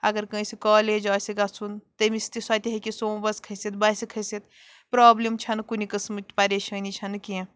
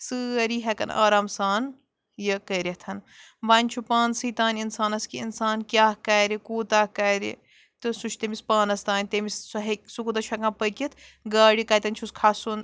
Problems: background sounds at intervals